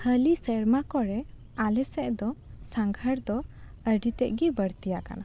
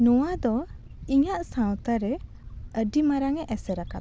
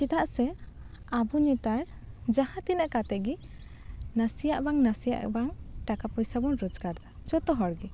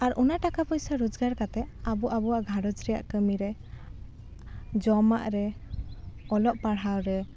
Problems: none marked